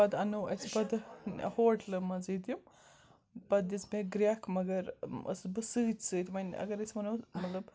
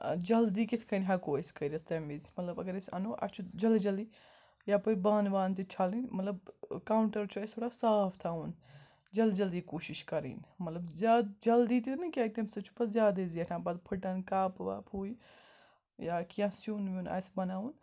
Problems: background sounds at intervals, background conversations at intervals